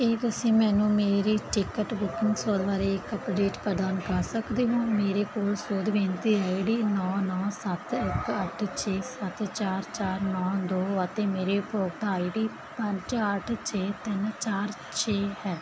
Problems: constant background noise